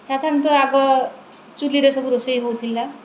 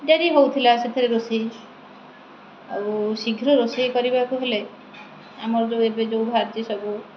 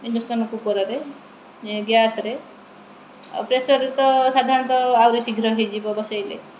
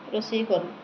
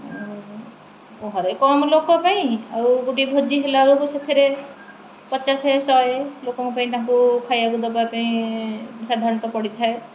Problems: none marked